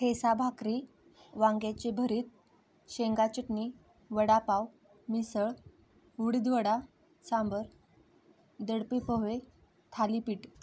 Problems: constant background noise